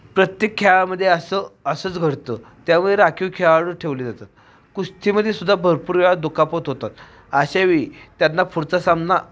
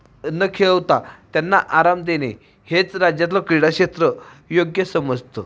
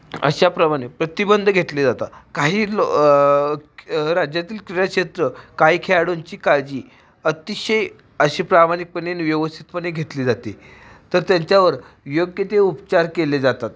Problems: none marked